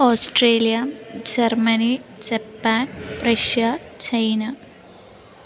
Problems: constant background noise